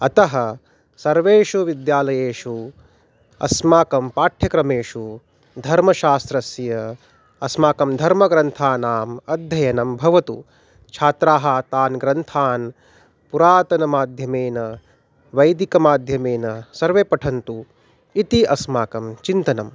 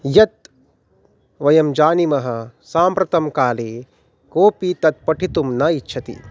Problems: none marked